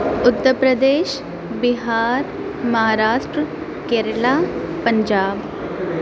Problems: constant background noise